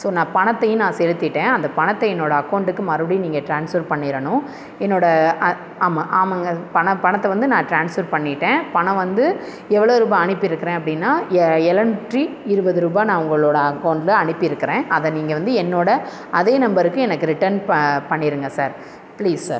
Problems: constant background noise